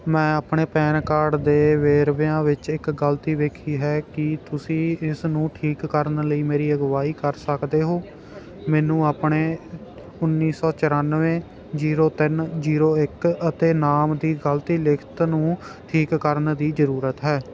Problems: none marked